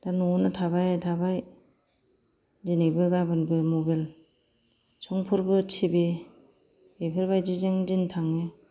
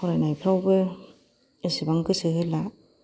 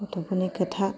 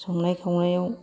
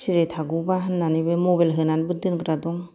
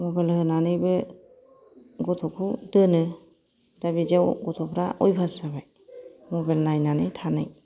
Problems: background sounds at intervals